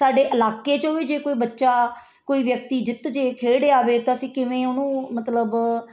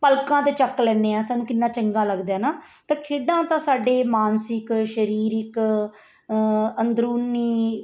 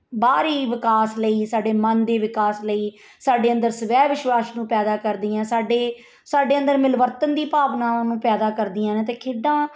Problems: none marked